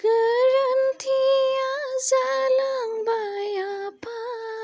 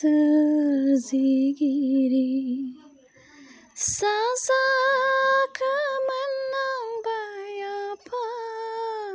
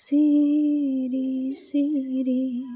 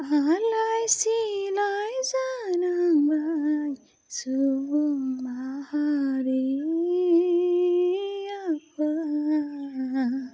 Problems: low volume